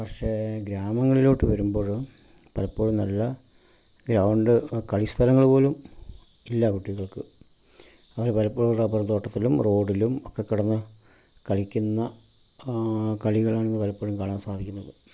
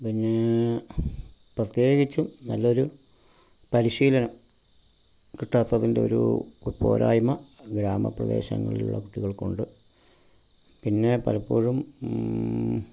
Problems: constant background noise, low volume